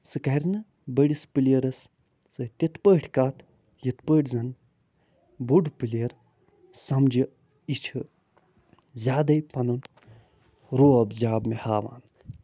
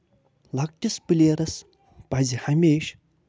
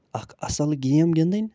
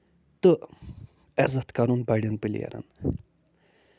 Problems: none marked